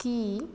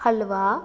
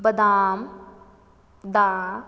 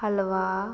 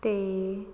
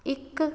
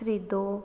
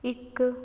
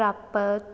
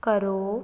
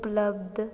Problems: background sounds at intervals